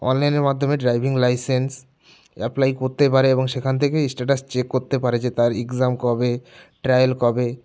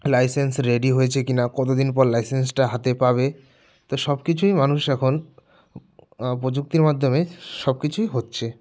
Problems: background sounds at intervals